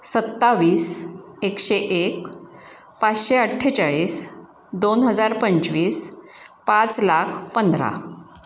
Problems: constant background noise, echo